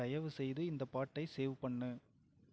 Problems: none marked